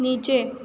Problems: none marked